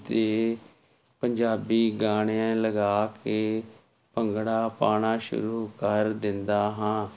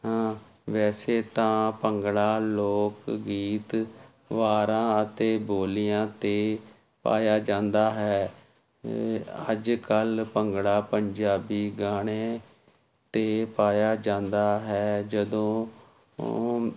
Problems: constant background noise